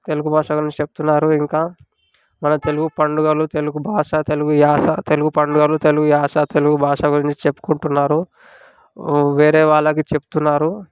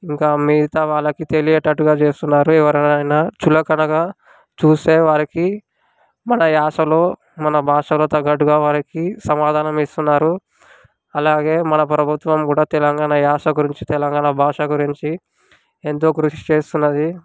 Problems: background sounds at intervals